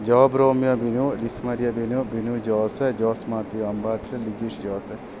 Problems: constant background noise